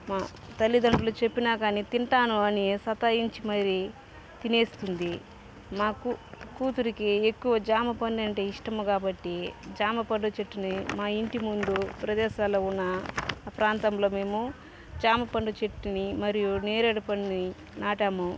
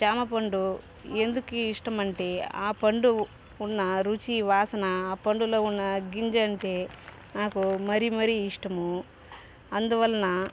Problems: background sounds at intervals